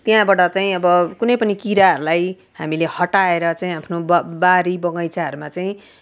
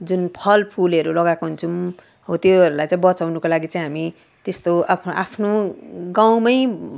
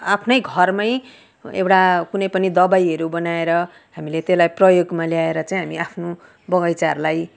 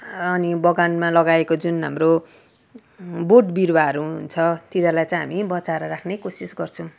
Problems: none marked